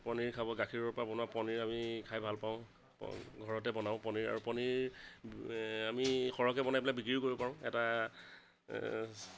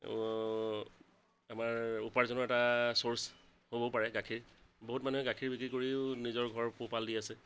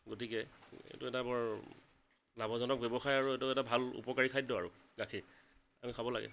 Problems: constant background noise